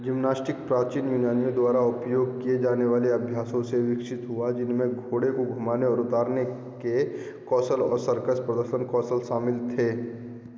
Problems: constant background noise, continuous background conversations, echo